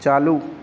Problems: none marked